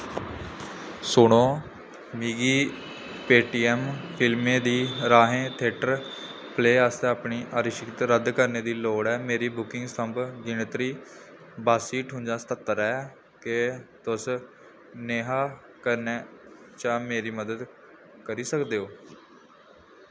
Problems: background sounds at intervals